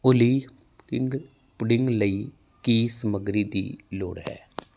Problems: background sounds at intervals